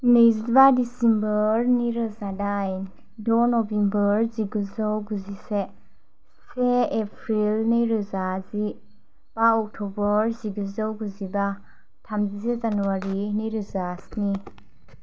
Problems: none marked